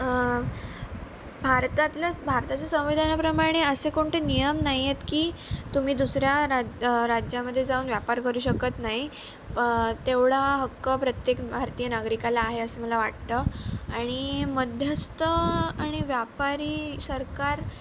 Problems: none marked